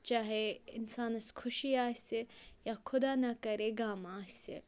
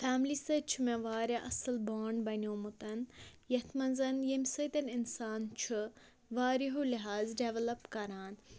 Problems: none marked